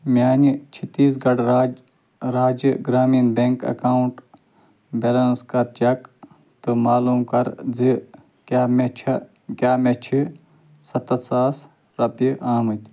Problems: constant background noise